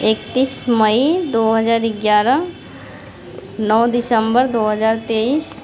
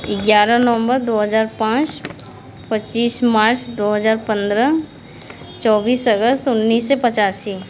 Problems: none marked